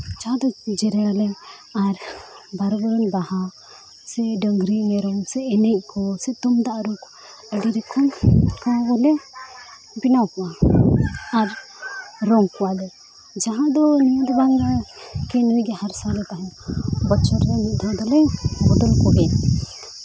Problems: constant background noise, continuous background conversations